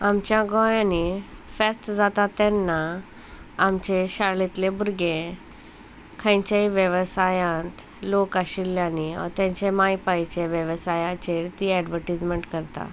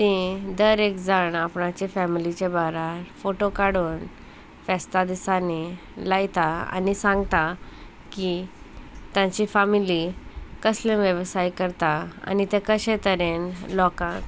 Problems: constant background noise